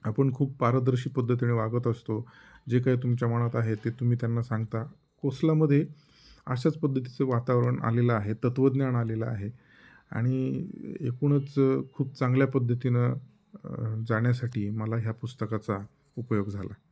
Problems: none marked